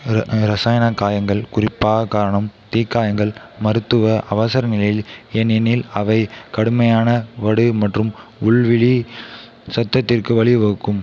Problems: constant background noise, continuous background conversations, echo